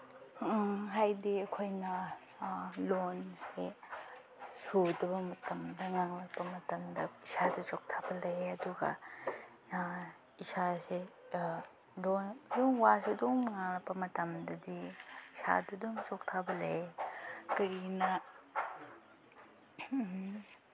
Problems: background sounds at intervals, low volume